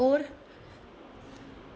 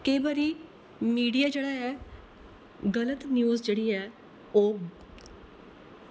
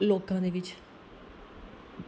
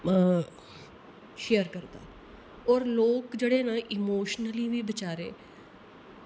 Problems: none marked